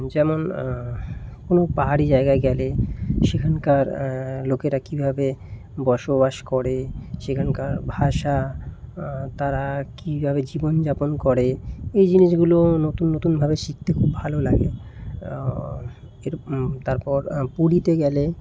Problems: constant background noise